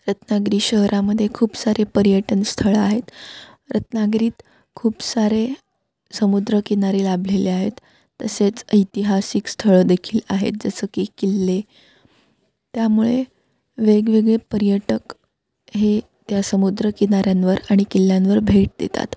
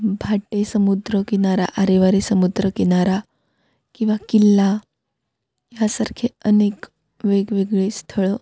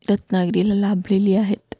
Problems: background sounds at intervals